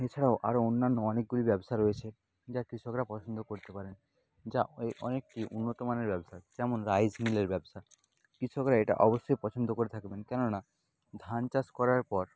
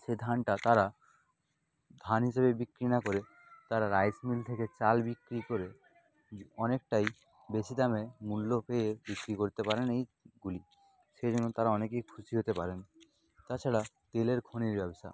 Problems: constant background noise